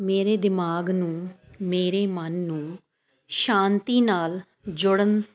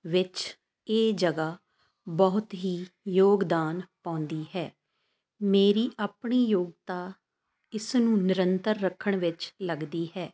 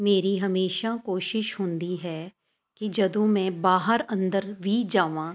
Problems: constant background noise